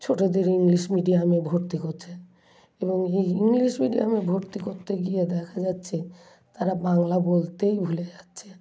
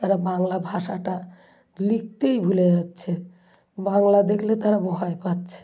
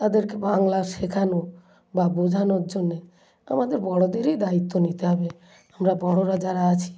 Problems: background sounds at intervals, low volume